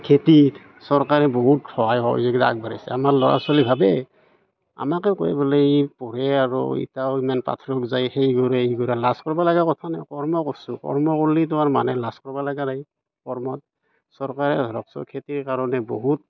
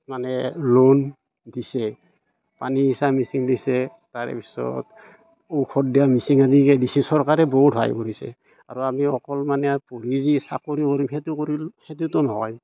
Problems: background sounds at intervals, background conversations at intervals